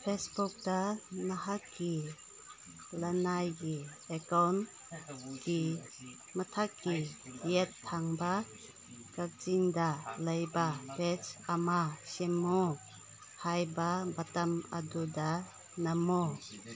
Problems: background conversations at intervals